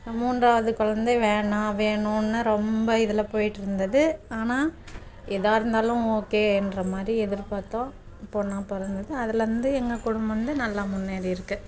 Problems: constant background noise